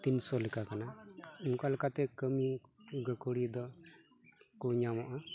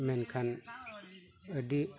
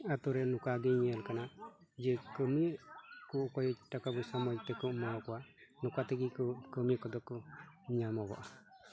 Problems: background sounds at intervals, background conversations at intervals